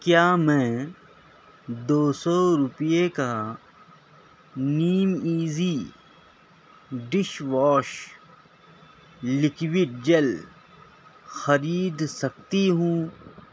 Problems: none marked